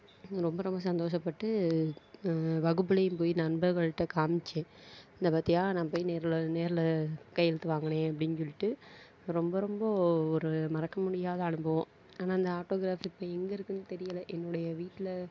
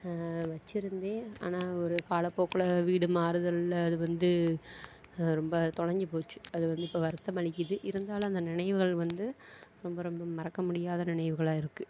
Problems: none marked